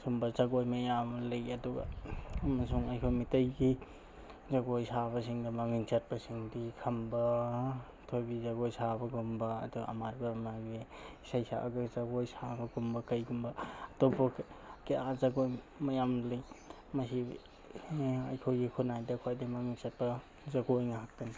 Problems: background sounds at intervals